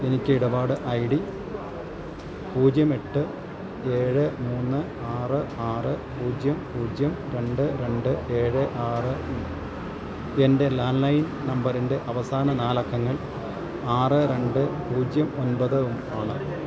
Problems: none marked